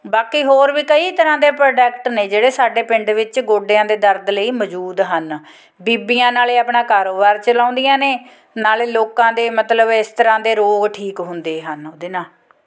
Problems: background sounds at intervals, background conversations at intervals